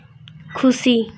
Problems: none marked